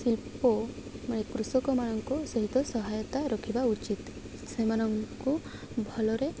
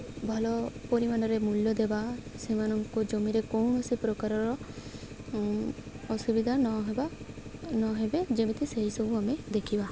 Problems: constant background noise